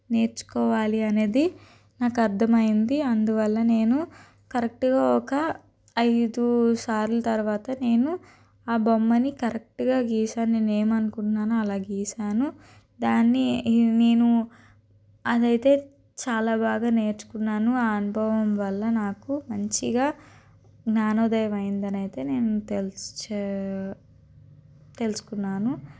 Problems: constant background noise